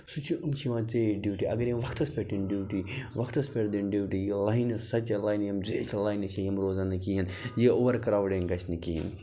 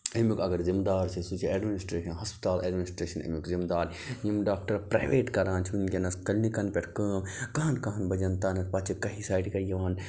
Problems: none marked